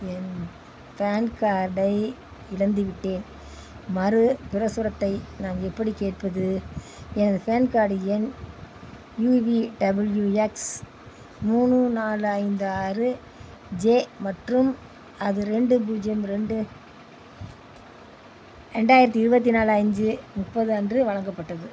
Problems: background sounds at intervals